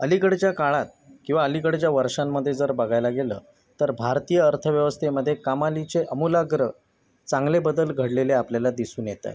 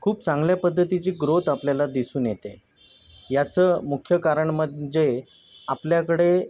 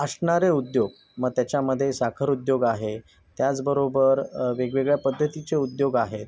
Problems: constant background noise, background conversations at intervals